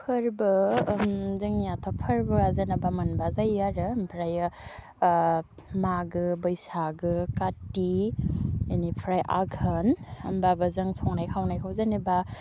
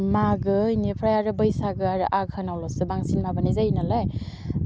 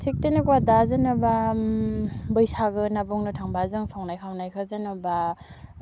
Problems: low volume